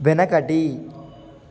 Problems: none marked